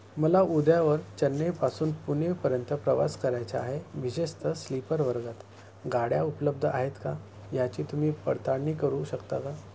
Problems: none marked